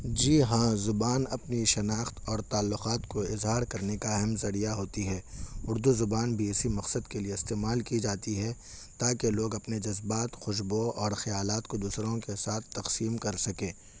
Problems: constant background noise